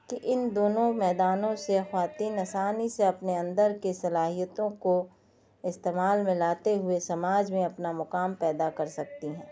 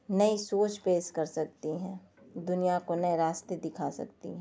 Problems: background sounds at intervals